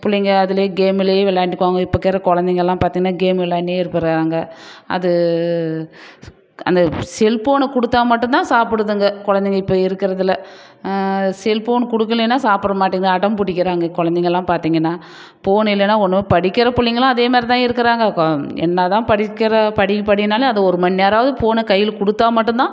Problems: none marked